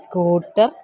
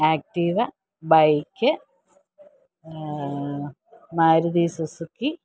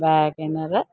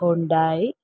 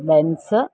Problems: low volume